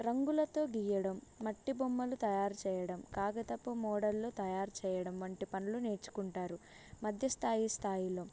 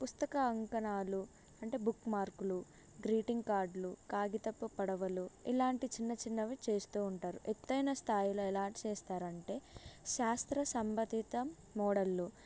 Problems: low volume